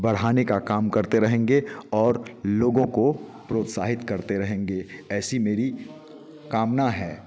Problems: none marked